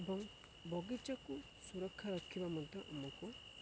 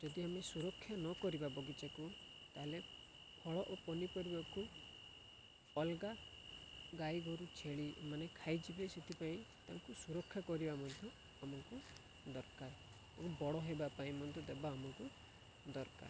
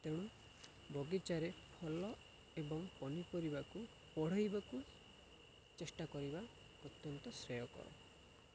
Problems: none marked